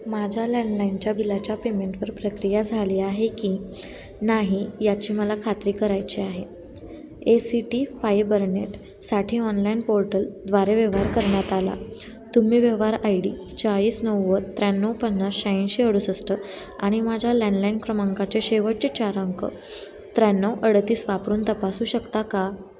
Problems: constant background noise, continuous background conversations